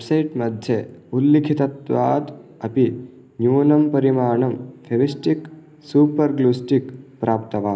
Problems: none marked